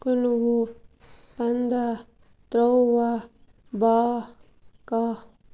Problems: constant background noise